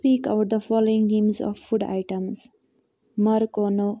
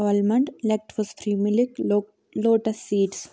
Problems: none marked